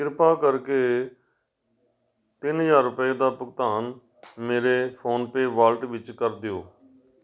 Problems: background conversations at intervals